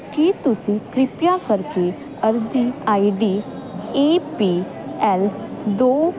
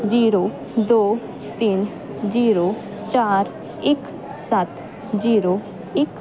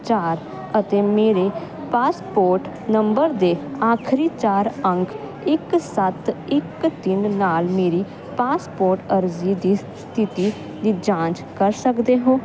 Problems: constant background noise